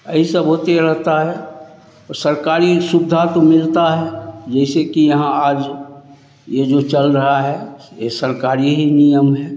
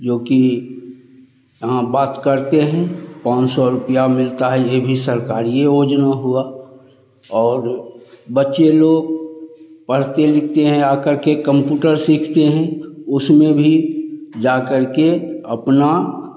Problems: none marked